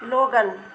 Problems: none marked